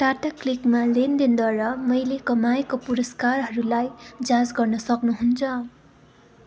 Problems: none marked